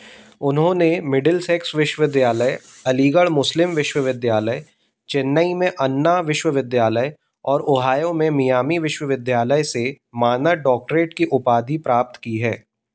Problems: background sounds at intervals